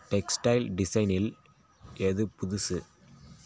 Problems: constant background noise